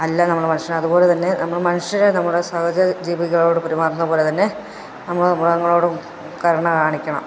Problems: none marked